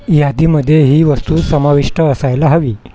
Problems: constant background noise